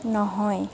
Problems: none marked